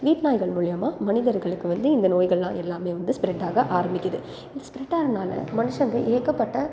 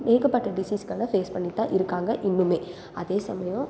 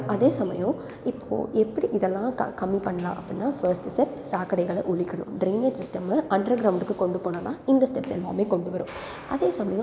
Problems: background conversations at intervals